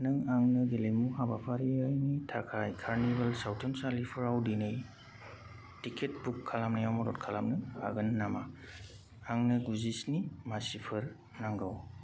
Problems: constant background noise